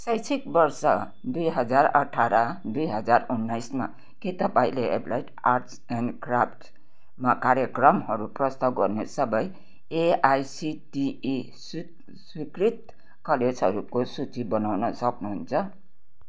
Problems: none marked